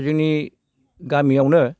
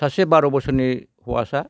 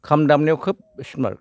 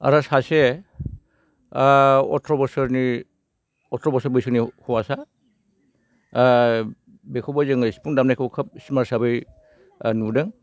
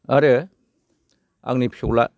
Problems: none marked